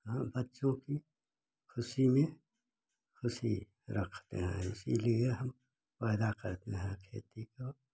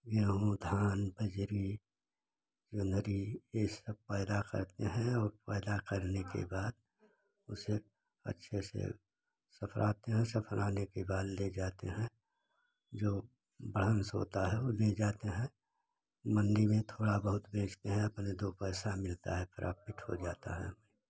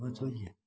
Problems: constant background noise